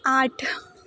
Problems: none marked